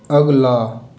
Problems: constant background noise, echo